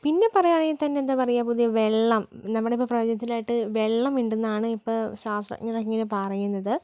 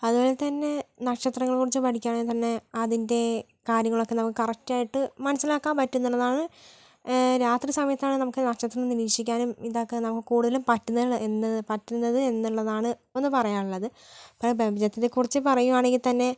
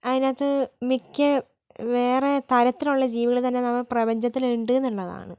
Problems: none marked